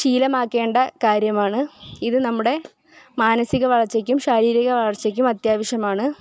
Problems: background sounds at intervals